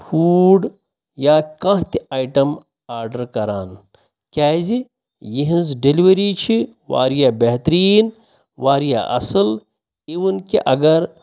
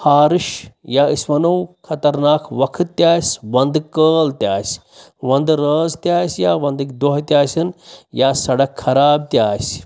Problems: none marked